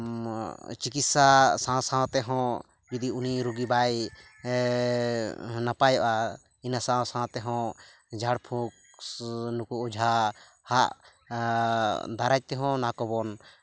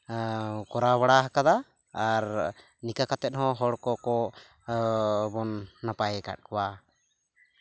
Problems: none marked